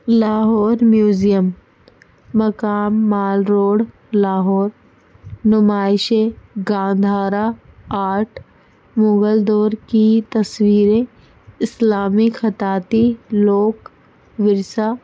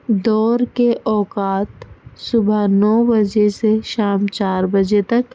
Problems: constant background noise